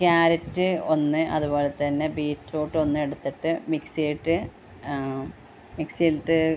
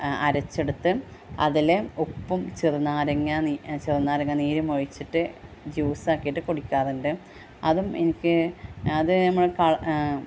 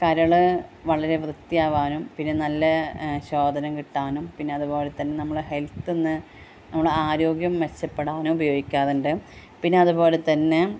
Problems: constant background noise